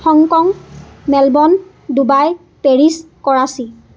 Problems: constant background noise